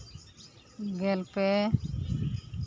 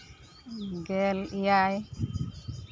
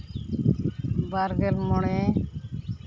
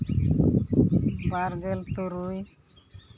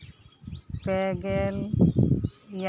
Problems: background sounds at intervals